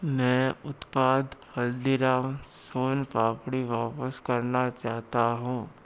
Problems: none marked